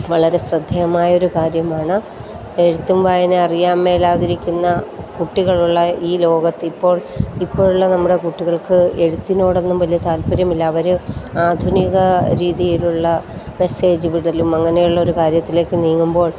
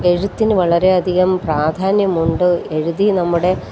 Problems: constant background noise